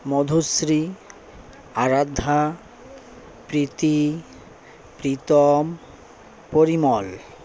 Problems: constant background noise, background conversations at intervals